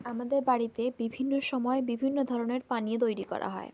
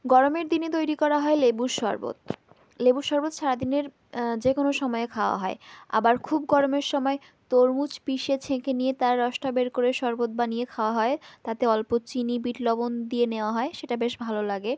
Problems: background sounds at intervals